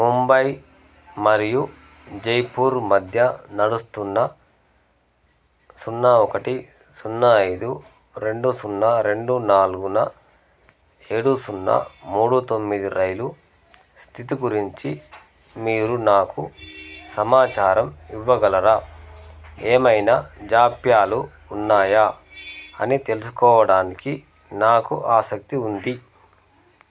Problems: background sounds at intervals